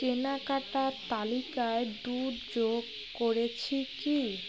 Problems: constant background noise, continuous background conversations